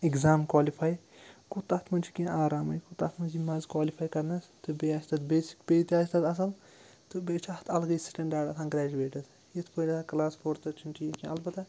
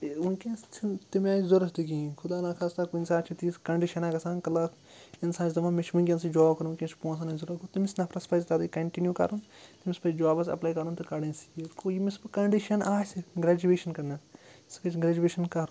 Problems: background sounds at intervals